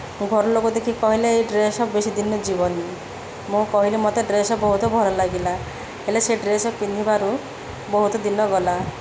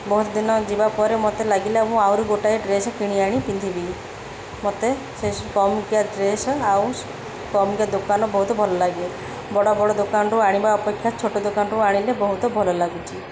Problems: constant background noise